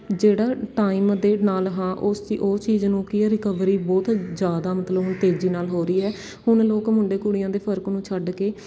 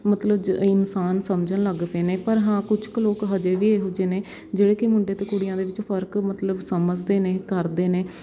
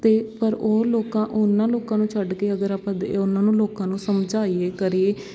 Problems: none marked